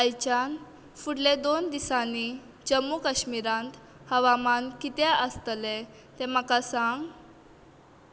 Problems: constant background noise